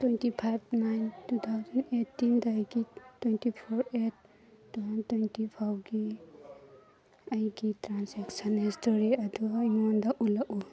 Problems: background conversations at intervals